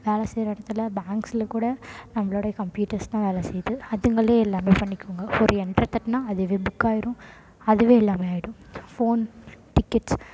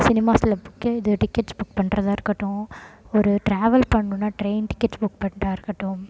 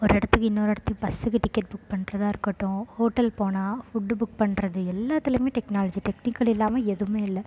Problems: constant background noise